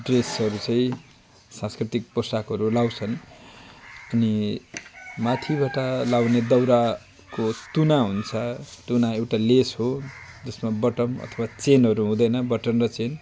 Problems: constant background noise